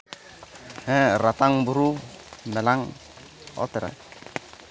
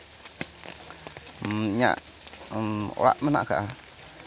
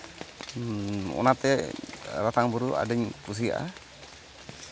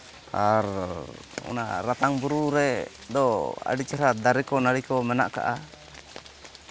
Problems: background sounds at intervals